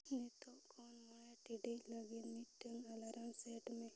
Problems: background sounds at intervals, low volume